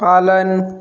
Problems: background sounds at intervals